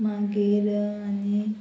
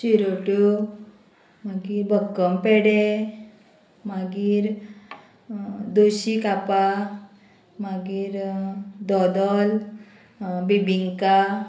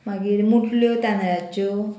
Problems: constant background noise